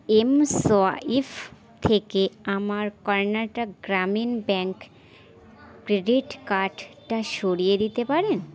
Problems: none marked